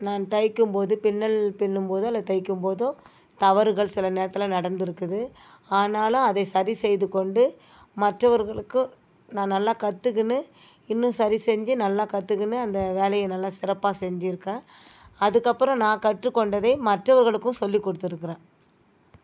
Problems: none marked